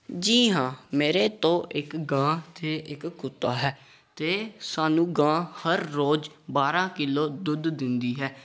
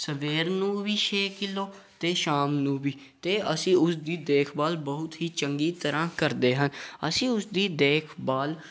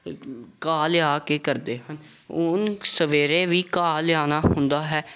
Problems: background conversations at intervals